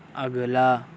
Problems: none marked